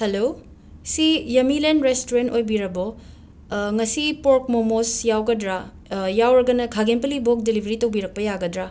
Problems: none marked